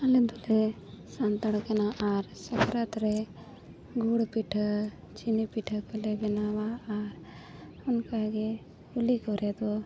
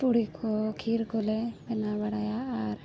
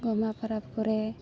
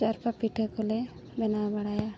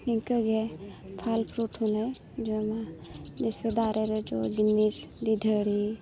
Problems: none marked